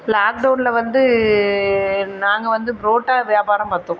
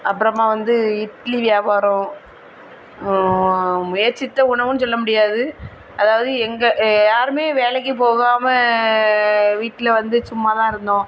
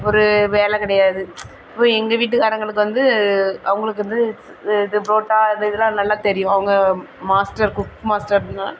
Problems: constant background noise